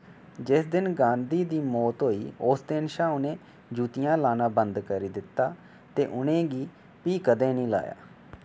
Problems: none marked